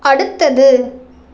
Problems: constant background noise